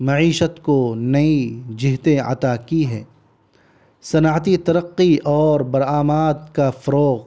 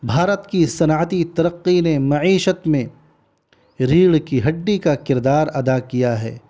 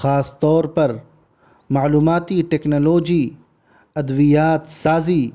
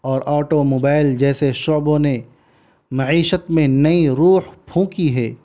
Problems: constant background noise